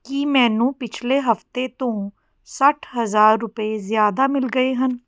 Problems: none marked